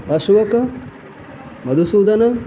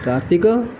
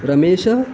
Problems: constant background noise